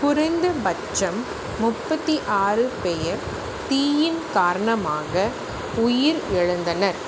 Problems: constant background noise